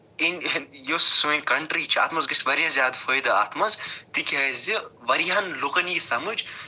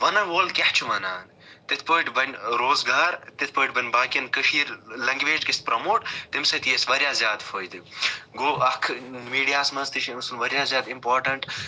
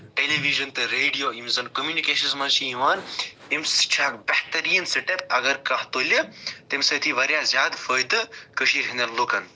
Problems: background sounds at intervals